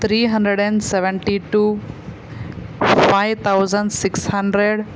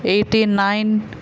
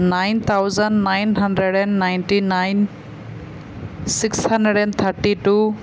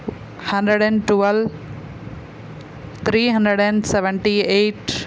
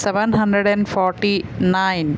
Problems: constant background noise